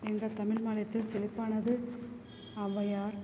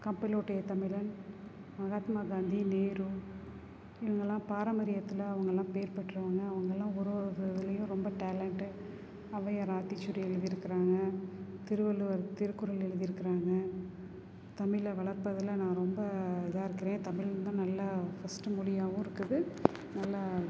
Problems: constant background noise